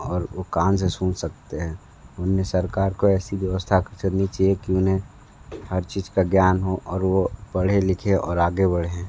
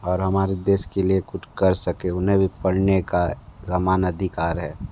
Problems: low volume